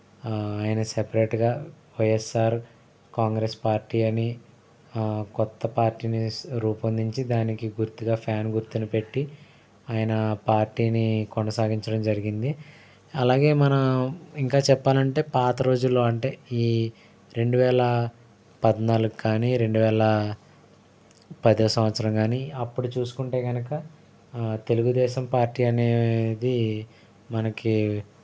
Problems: none marked